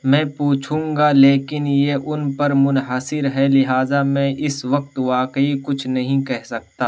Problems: constant background noise